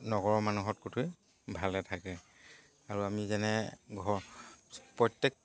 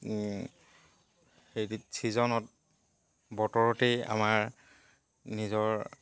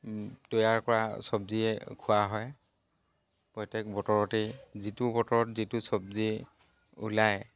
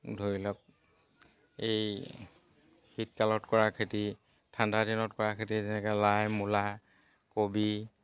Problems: constant background noise